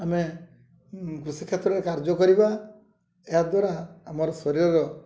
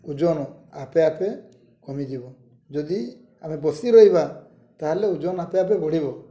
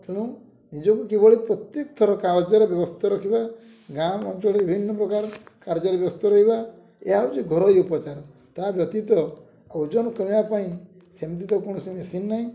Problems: low volume